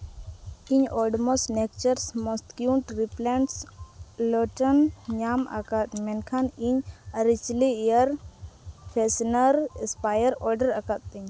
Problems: none marked